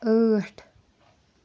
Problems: background sounds at intervals